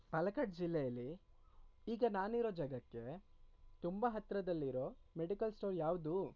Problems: low volume